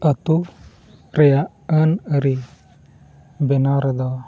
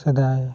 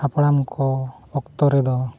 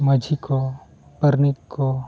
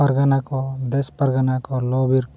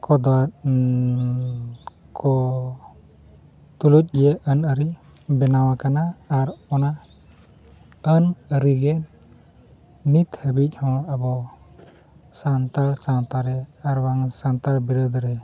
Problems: constant background noise